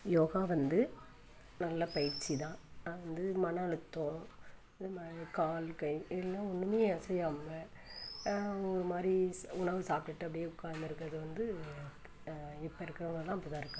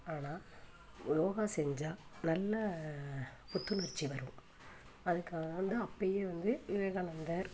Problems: background sounds at intervals